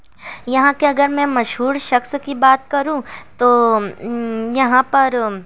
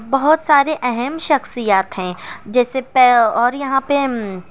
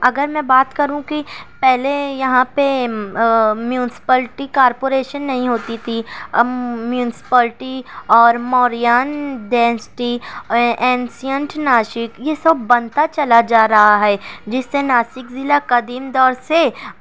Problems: none marked